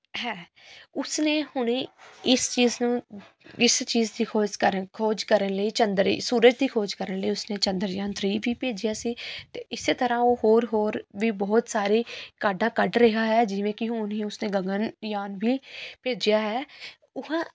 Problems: none marked